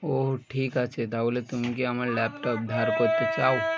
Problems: continuous background conversations